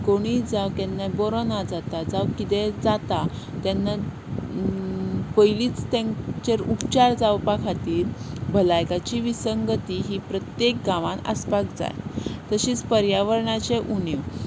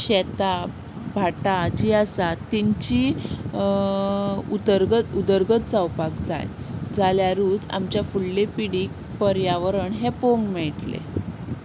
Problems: constant background noise